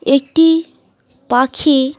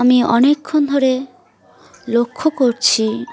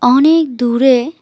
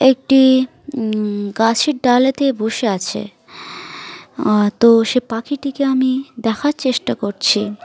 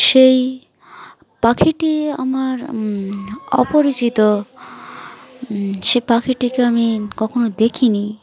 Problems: continuous background conversations